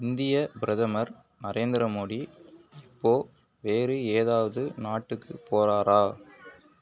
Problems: none marked